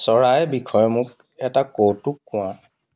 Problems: none marked